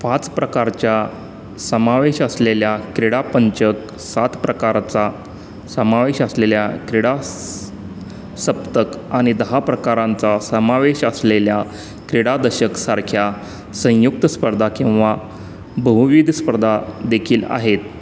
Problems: constant background noise